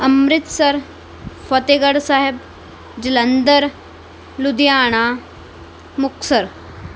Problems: none marked